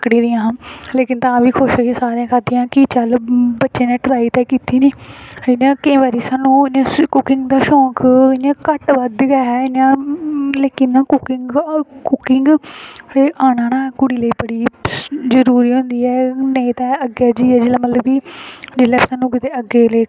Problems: constant background noise